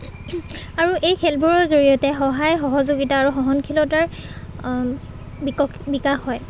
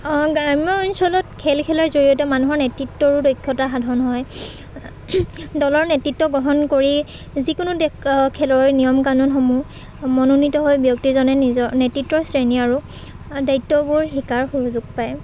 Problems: constant background noise, background conversations at intervals